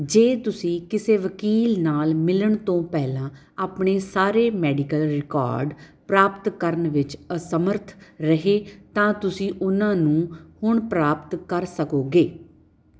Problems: background sounds at intervals